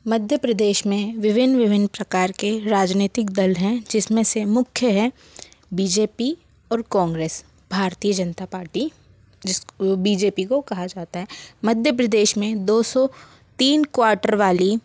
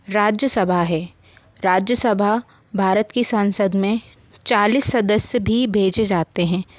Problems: constant background noise